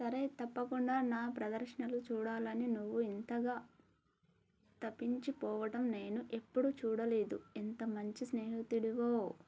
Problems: low volume